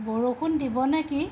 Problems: constant background noise